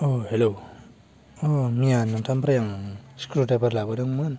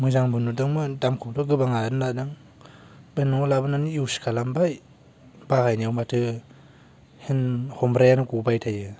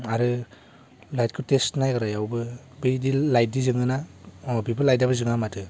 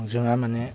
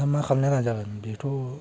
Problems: none marked